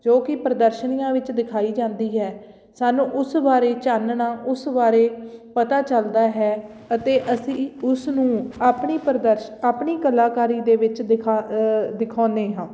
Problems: background sounds at intervals